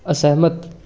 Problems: background conversations at intervals